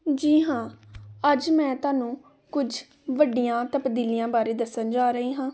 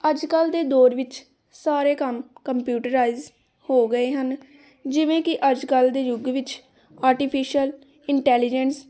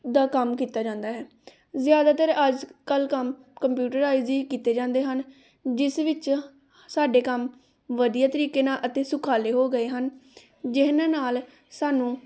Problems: background conversations at intervals